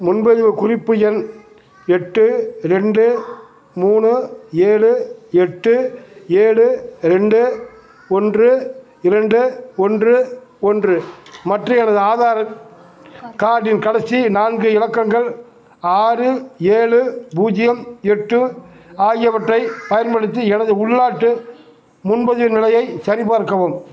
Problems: background sounds at intervals